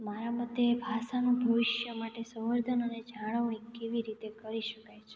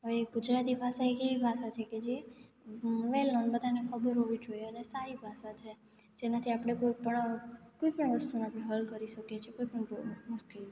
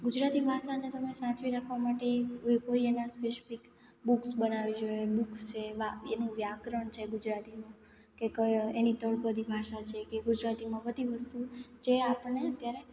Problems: background sounds at intervals, echo